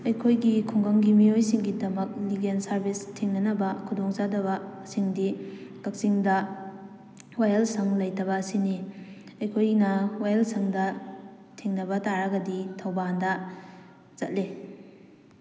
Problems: none marked